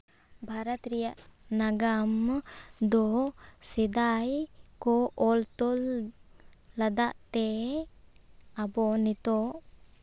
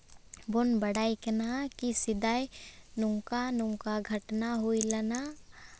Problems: none marked